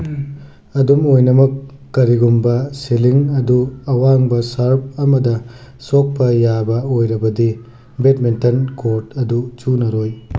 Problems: none marked